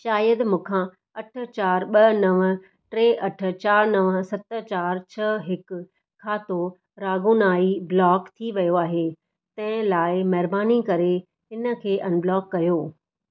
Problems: none marked